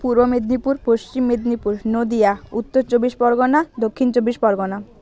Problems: none marked